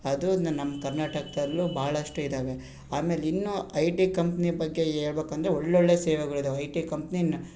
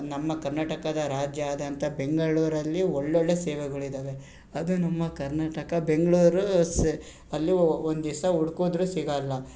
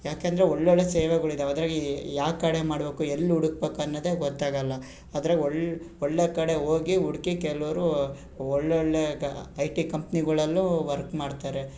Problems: none marked